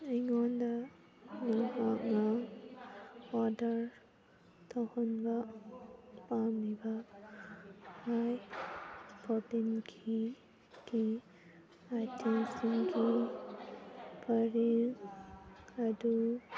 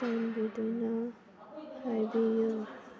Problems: background conversations at intervals, low volume